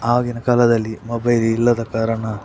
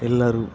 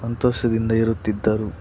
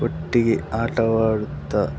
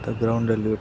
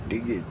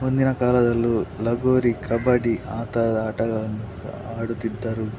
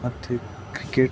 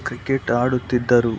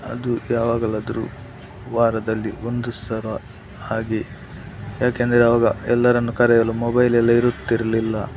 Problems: none marked